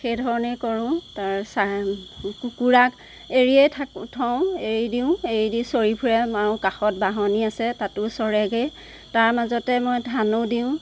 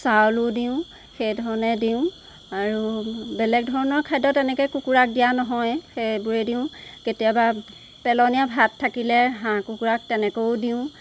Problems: constant background noise